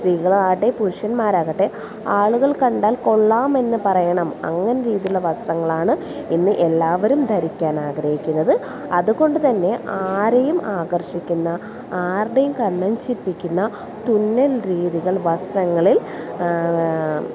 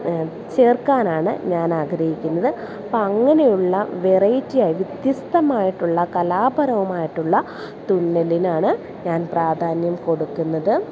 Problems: none marked